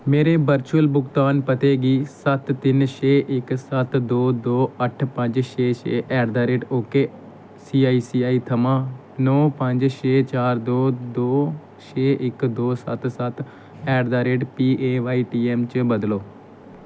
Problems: none marked